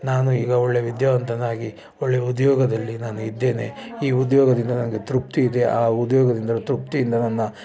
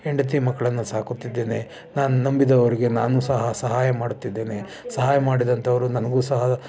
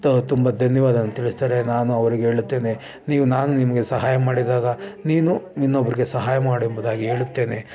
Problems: none marked